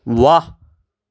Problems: none marked